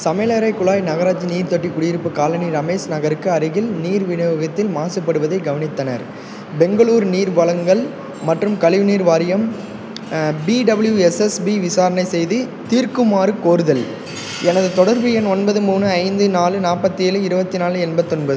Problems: constant background noise